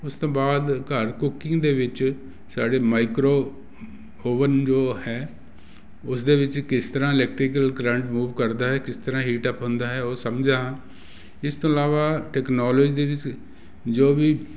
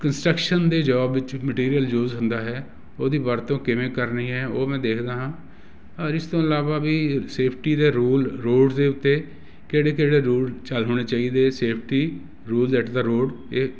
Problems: constant background noise